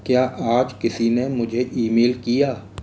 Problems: constant background noise